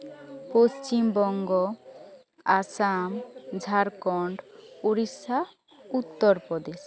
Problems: background conversations at intervals